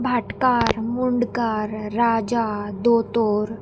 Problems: constant background noise